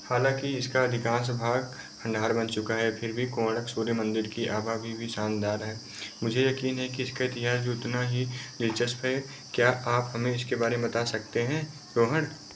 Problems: none marked